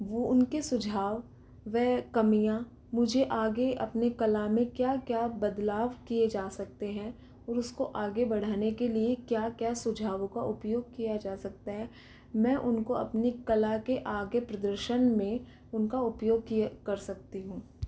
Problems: constant background noise, low volume